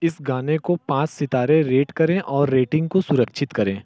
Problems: low volume